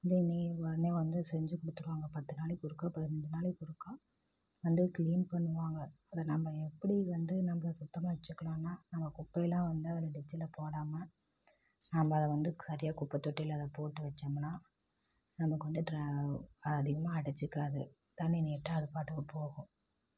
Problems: low volume